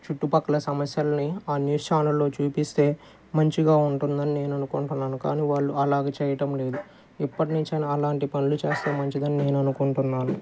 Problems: none marked